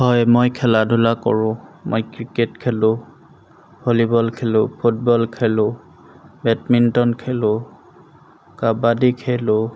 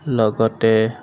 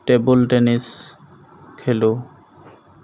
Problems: none marked